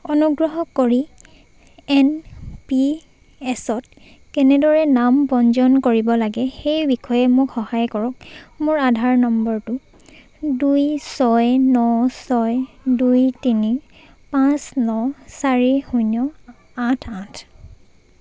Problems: none marked